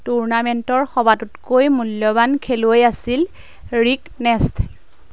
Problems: none marked